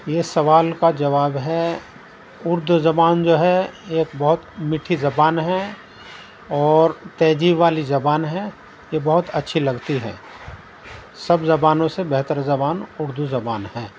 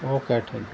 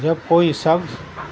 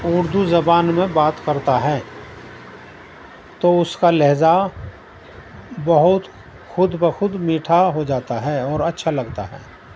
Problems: constant background noise